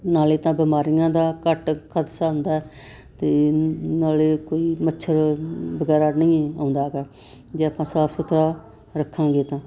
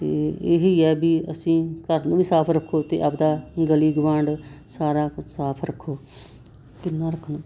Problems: constant background noise